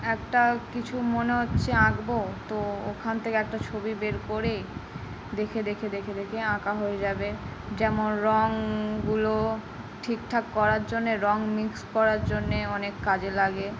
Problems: background sounds at intervals